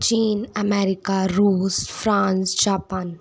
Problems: none marked